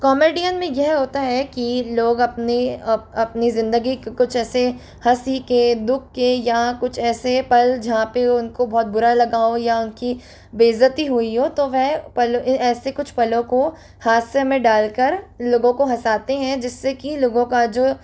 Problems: constant background noise